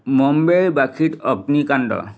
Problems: background sounds at intervals